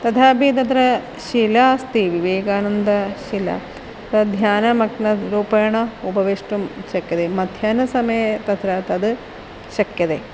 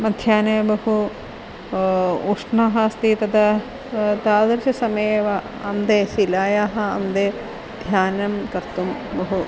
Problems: constant background noise